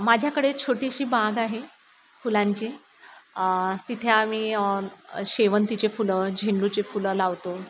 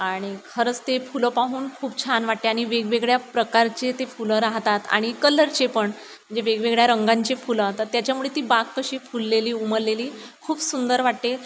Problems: none marked